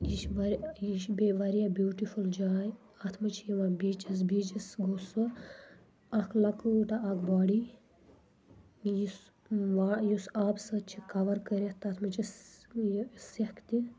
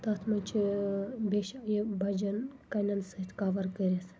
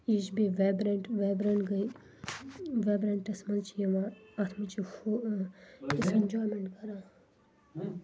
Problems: low volume